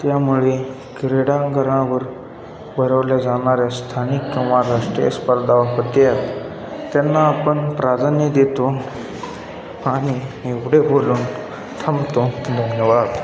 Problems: constant background noise, continuous background conversations